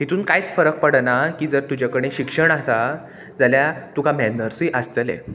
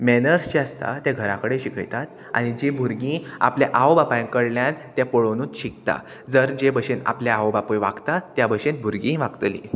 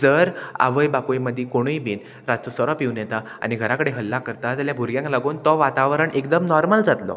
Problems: constant background noise